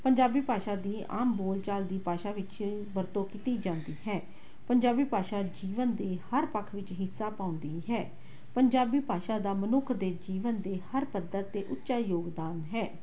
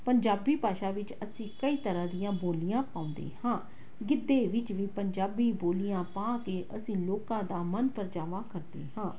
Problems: background sounds at intervals